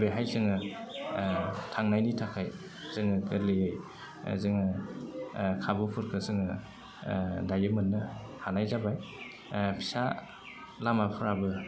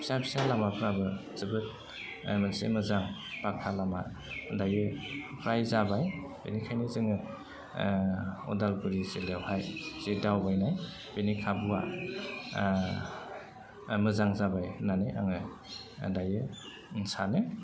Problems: low volume